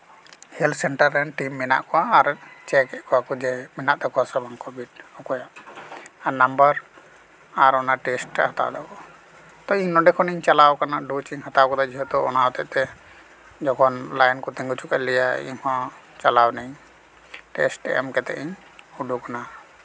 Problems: none marked